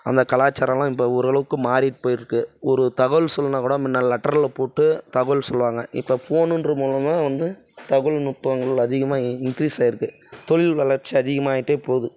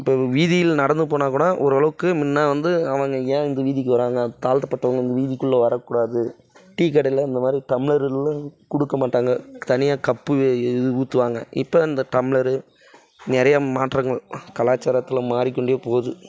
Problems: background sounds at intervals, background conversations at intervals